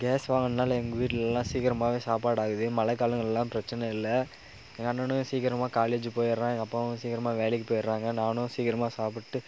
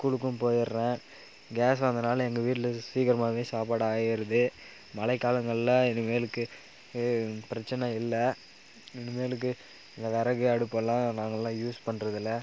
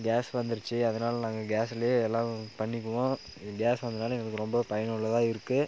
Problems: background sounds at intervals